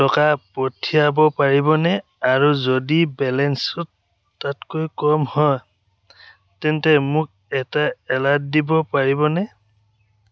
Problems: none marked